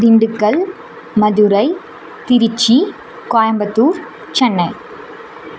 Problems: none marked